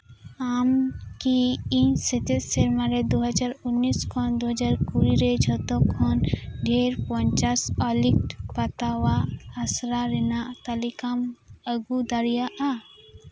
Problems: constant background noise